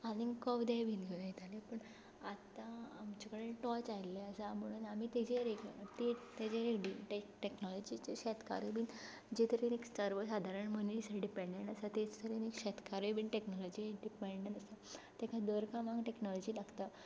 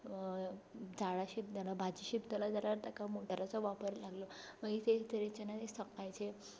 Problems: background sounds at intervals, low volume